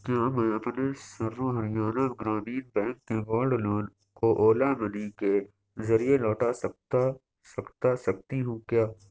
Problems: constant background noise, low volume